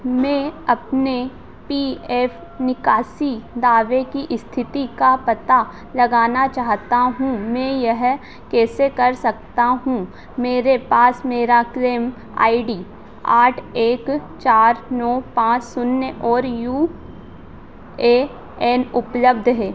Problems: constant background noise